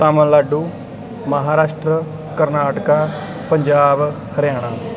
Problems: constant background noise